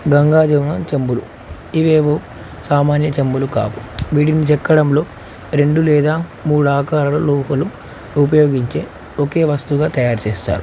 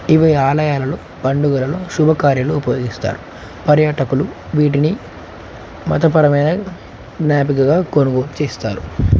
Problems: constant background noise